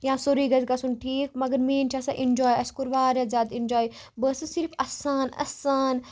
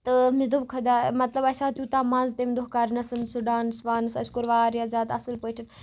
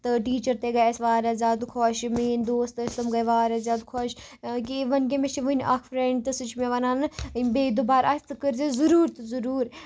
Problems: background sounds at intervals